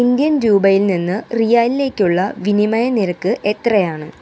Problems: constant background noise